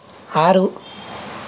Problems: none marked